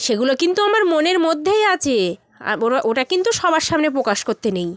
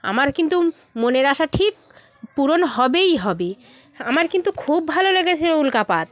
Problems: none marked